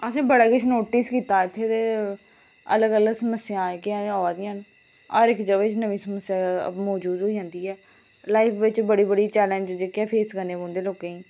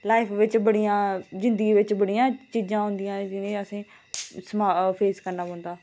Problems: constant background noise